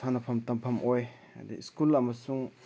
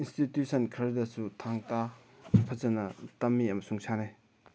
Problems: background conversations at intervals